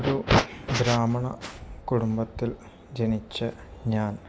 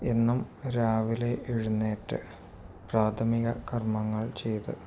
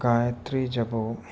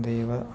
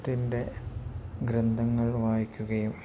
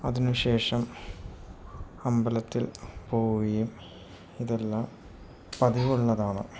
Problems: none marked